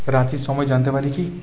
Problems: continuous background conversations